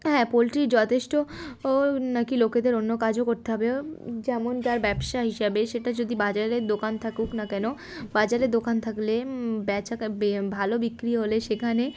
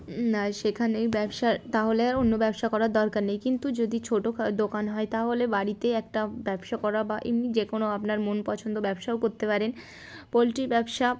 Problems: background sounds at intervals